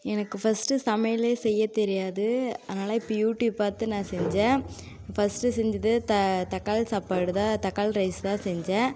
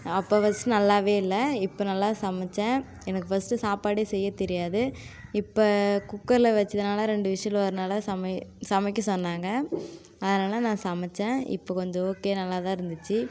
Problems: constant background noise